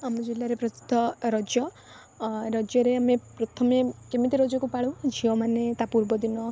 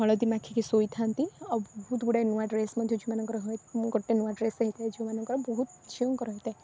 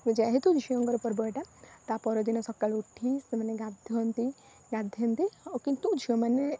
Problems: constant background noise